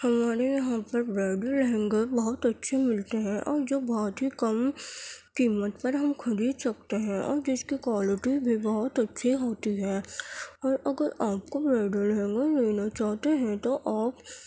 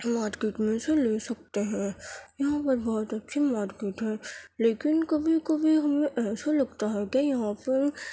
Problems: background sounds at intervals